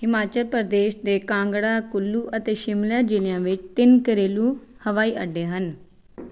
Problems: none marked